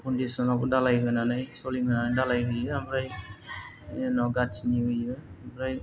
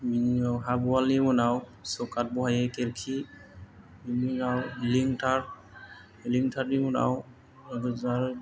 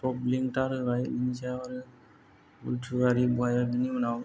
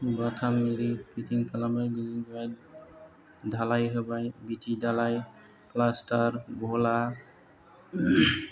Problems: low volume